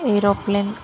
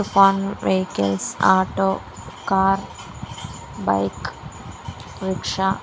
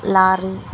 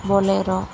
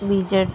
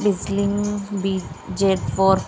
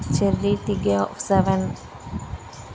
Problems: constant background noise